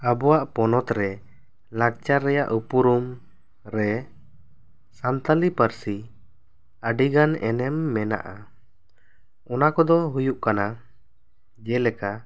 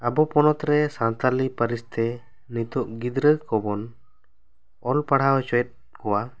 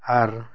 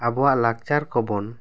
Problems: none marked